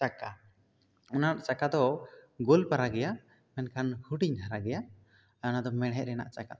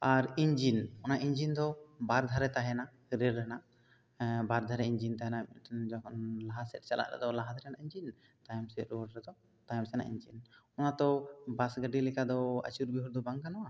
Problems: none marked